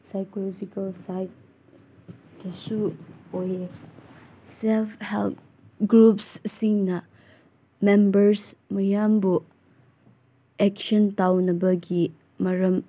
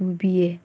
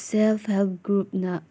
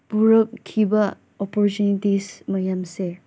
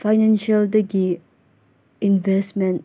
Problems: background sounds at intervals